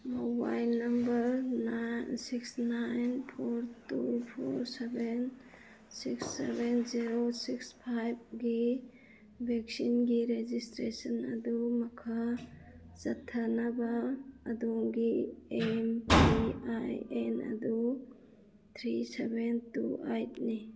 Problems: background sounds at intervals